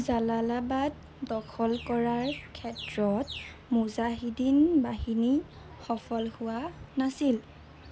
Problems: constant background noise